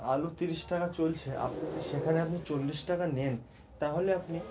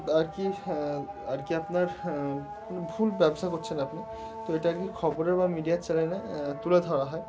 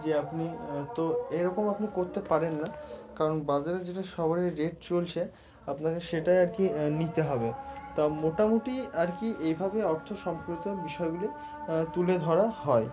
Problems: constant background noise